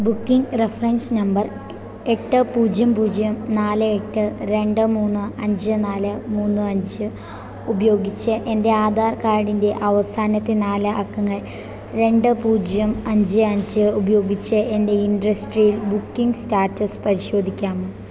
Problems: constant background noise